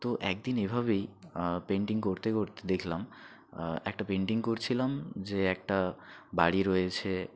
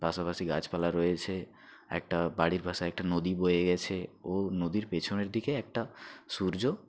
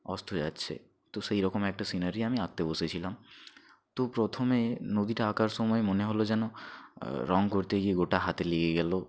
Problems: none marked